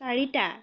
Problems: none marked